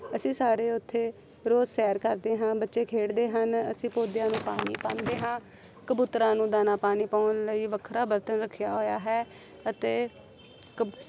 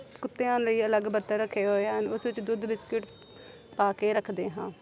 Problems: none marked